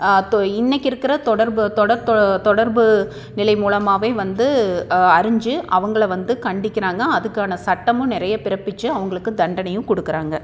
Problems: none marked